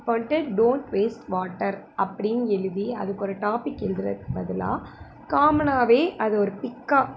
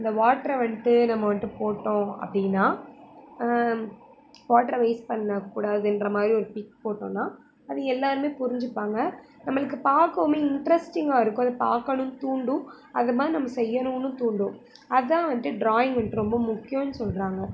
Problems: constant background noise